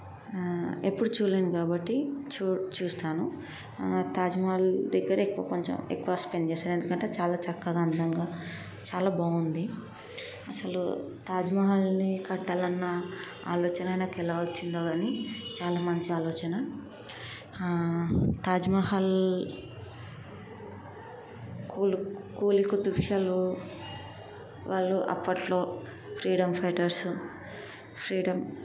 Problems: constant background noise